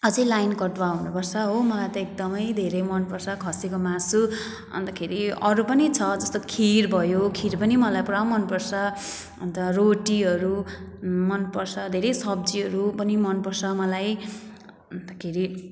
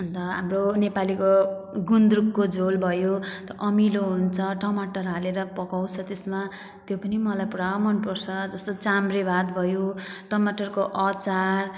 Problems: none marked